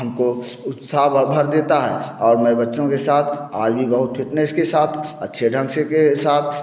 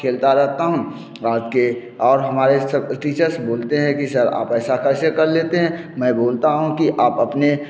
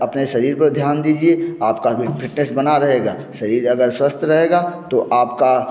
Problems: none marked